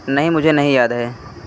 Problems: none marked